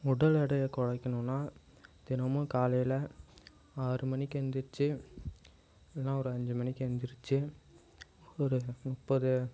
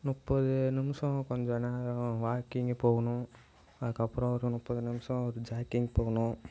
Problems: background sounds at intervals